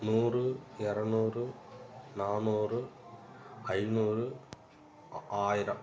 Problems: background sounds at intervals